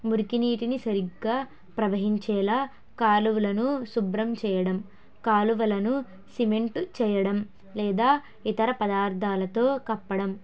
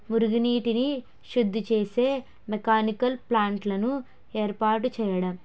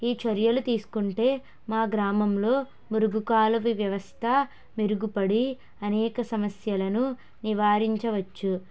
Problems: none marked